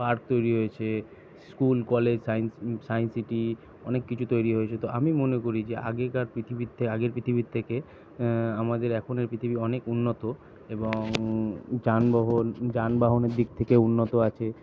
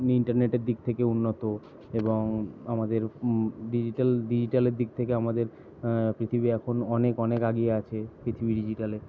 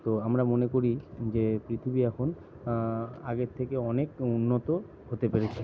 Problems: none marked